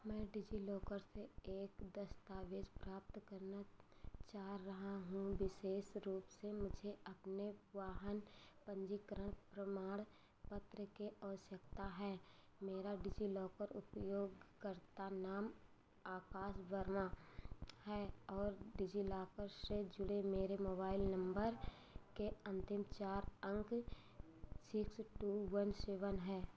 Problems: background sounds at intervals